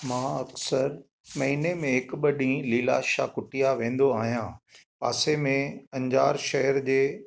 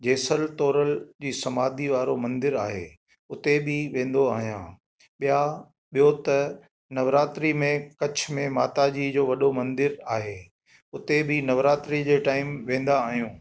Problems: echo